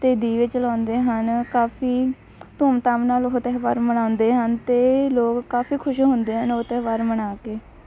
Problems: none marked